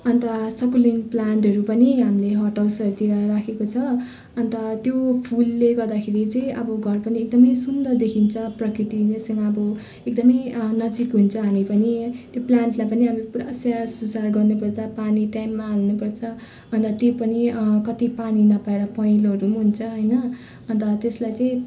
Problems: constant background noise